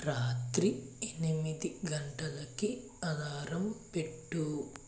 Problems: constant background noise